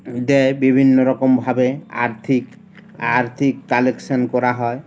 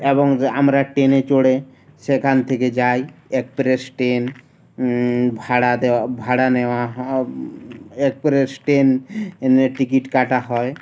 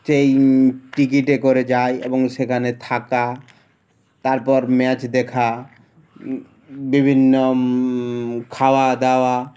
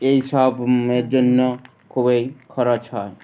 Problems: none marked